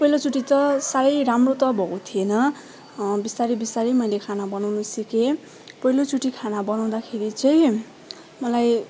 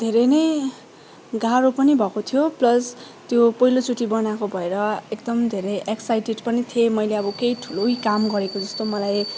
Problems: background sounds at intervals, continuous background conversations